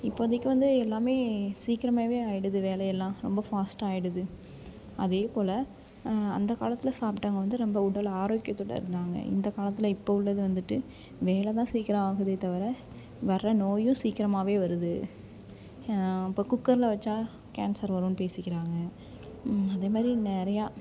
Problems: continuous background conversations